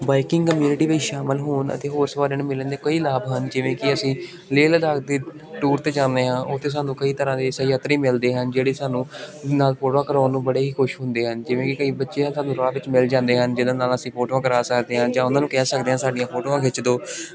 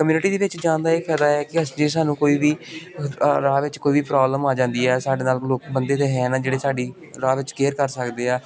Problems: constant background noise